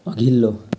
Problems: background sounds at intervals